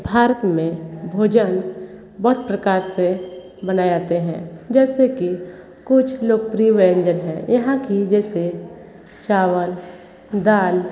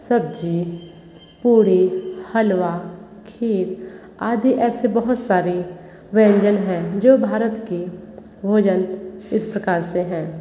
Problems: echo